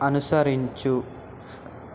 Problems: constant background noise